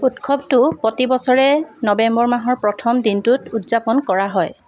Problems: constant background noise